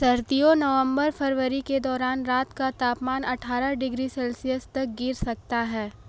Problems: background sounds at intervals